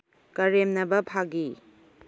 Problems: low volume